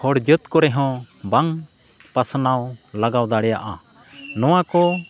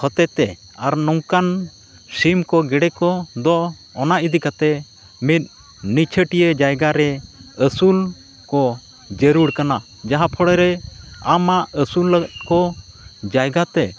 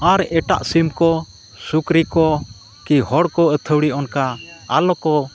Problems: none marked